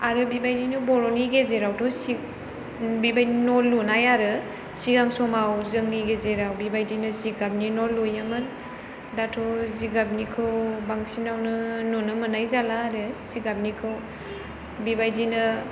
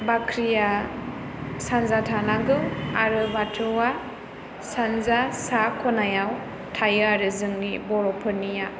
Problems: none marked